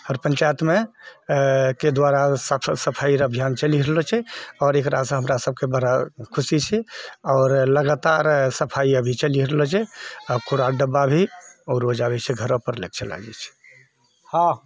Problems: none marked